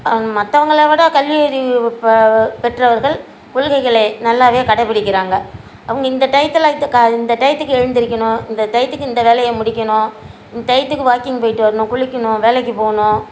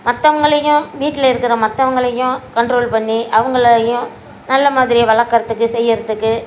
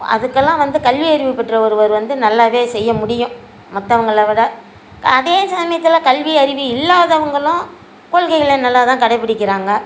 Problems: constant background noise